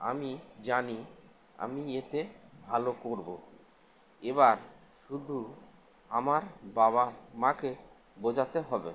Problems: constant background noise